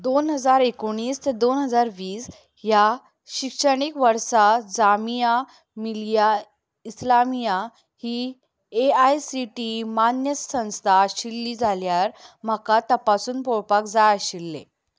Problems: none marked